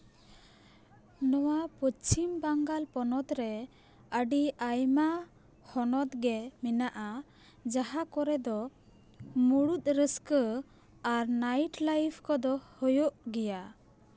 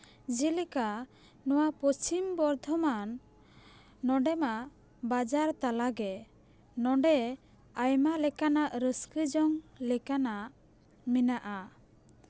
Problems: background sounds at intervals